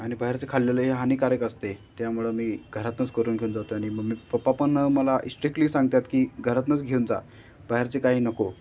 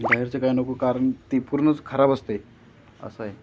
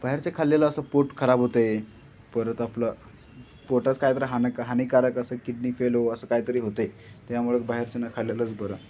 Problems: none marked